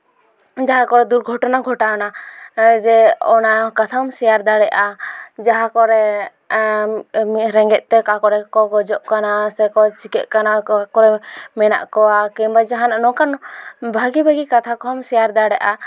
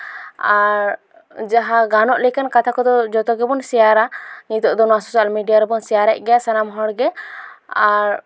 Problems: background sounds at intervals, background conversations at intervals